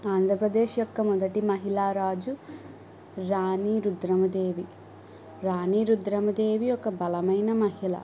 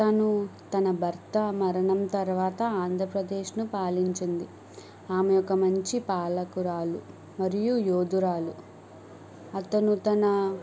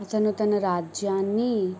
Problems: background sounds at intervals